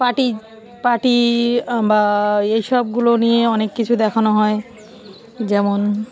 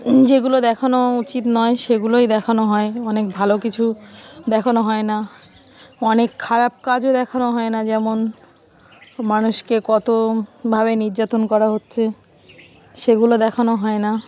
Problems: background sounds at intervals